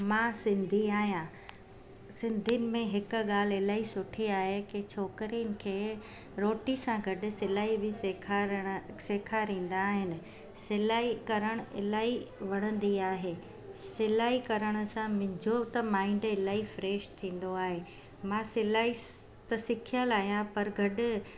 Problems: constant background noise